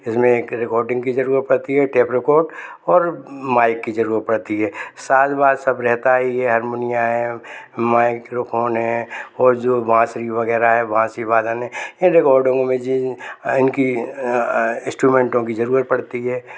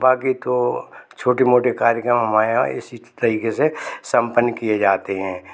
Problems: constant background noise